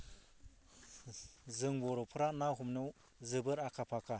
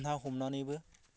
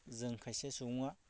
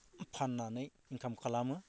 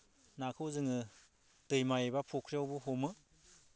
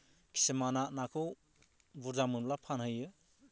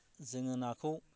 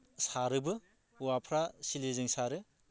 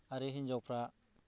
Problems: low volume